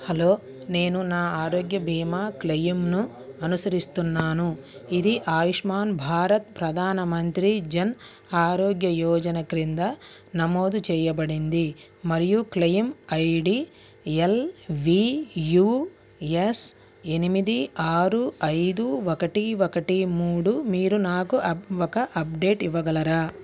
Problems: background conversations at intervals